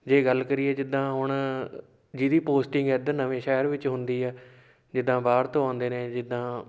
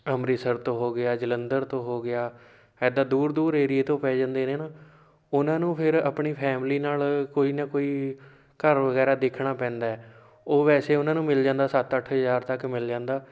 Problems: none marked